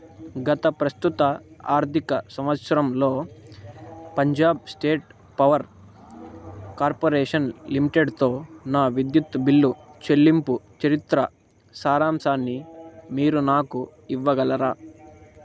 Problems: constant background noise